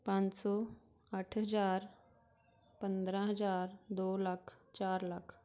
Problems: background sounds at intervals